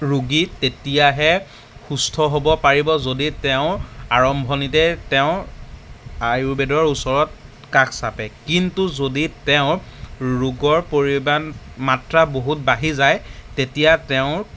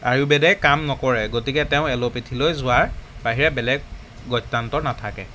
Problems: background sounds at intervals